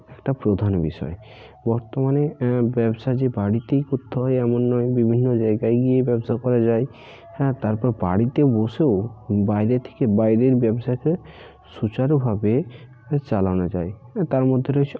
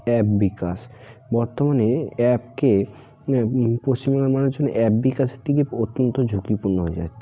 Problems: constant background noise, continuous background conversations